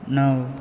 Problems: constant background noise